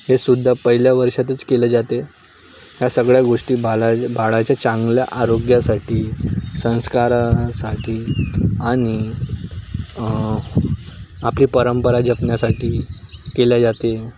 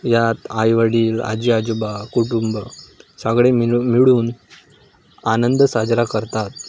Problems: none marked